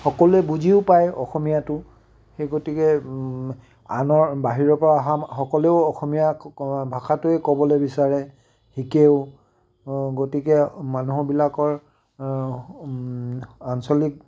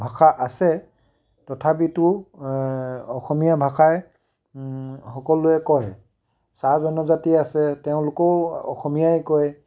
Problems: none marked